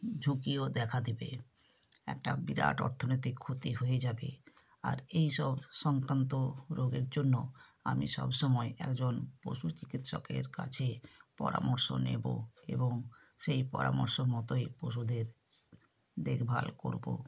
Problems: none marked